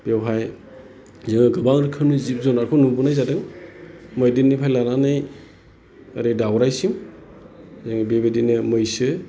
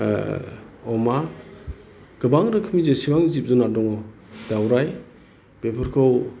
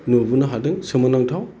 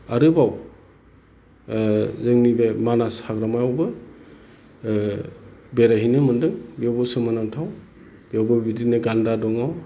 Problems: constant background noise